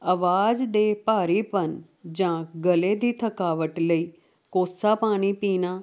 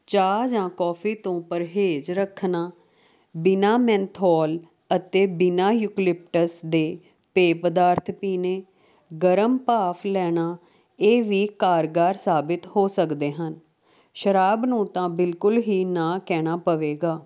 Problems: constant background noise